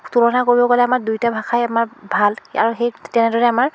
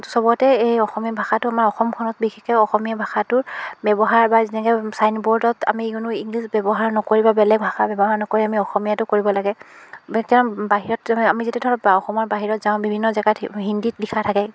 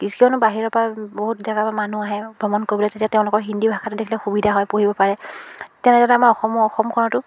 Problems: background sounds at intervals